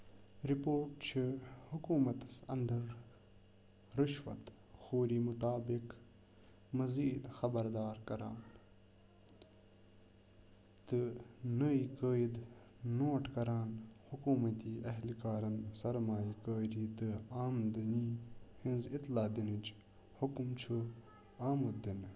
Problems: constant background noise